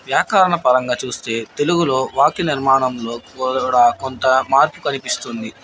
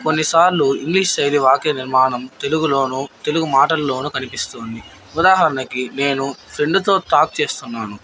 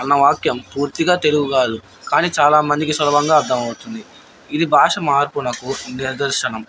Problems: background sounds at intervals